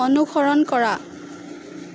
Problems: constant background noise